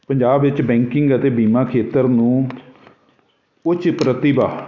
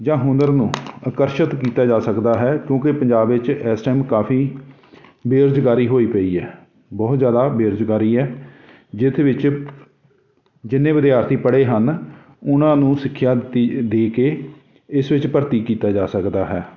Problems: constant background noise